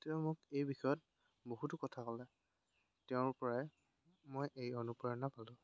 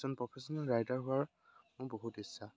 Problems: constant background noise